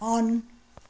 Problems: none marked